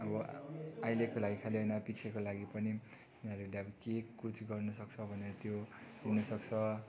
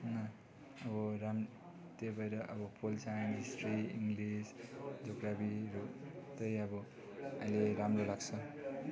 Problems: constant background noise